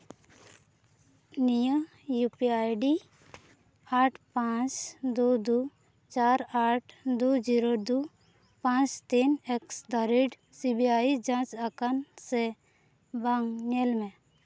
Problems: background sounds at intervals